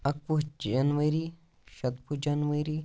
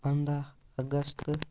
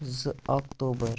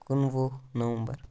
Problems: background sounds at intervals